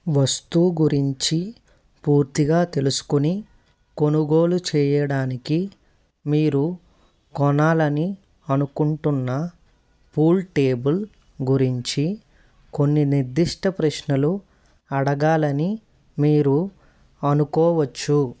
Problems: constant background noise